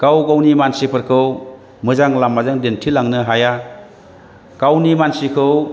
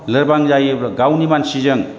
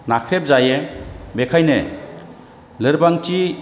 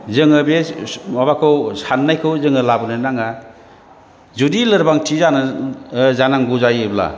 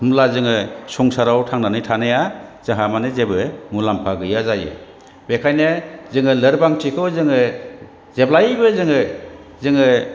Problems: none marked